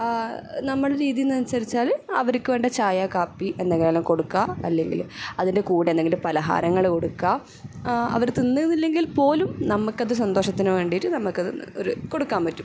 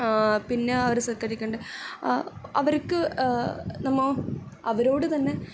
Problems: none marked